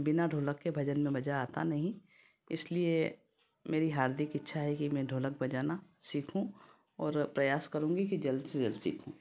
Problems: none marked